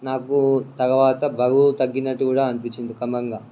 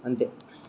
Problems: background sounds at intervals